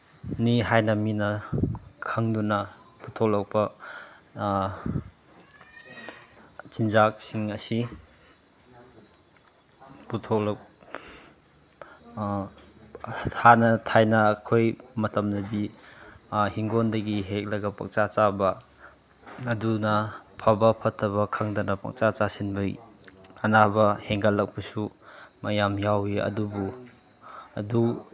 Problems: none marked